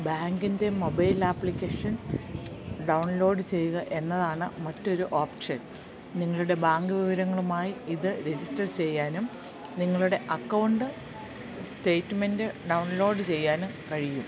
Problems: background sounds at intervals